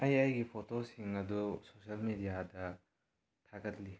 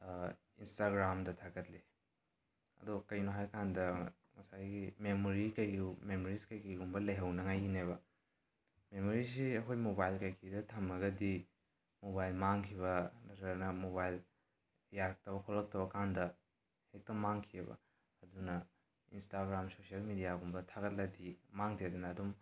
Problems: none marked